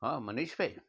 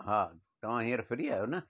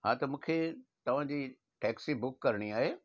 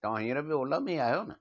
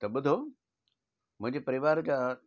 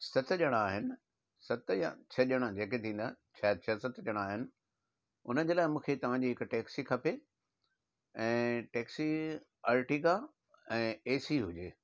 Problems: none marked